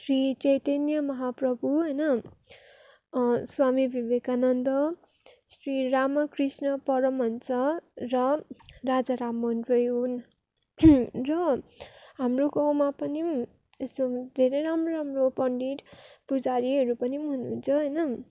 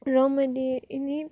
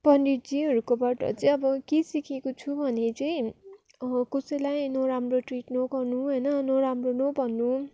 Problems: constant background noise